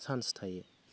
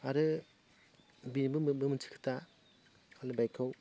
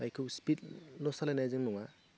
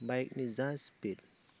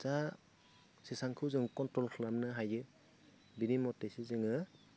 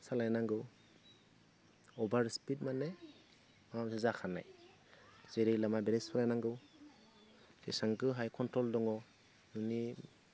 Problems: constant background noise